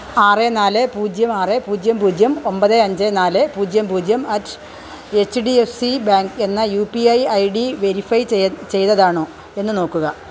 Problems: none marked